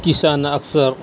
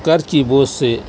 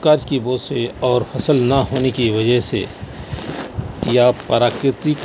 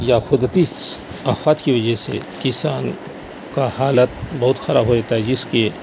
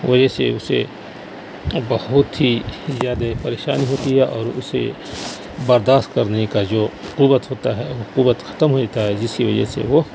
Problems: constant background noise